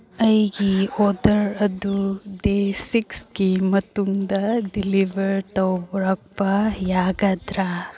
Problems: none marked